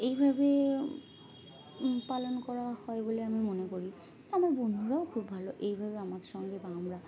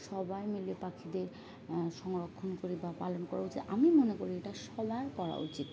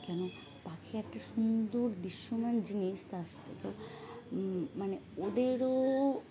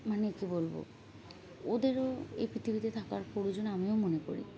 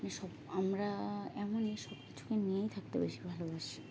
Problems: constant background noise, background conversations at intervals